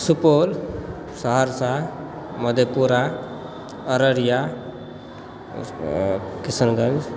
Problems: background sounds at intervals, background conversations at intervals